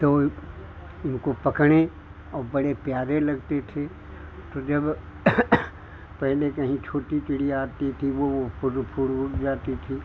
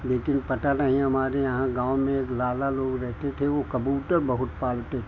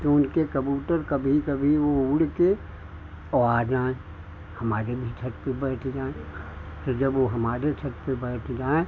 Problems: none marked